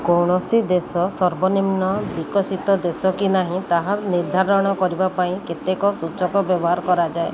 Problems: constant background noise